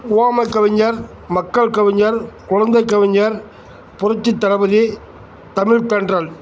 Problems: none marked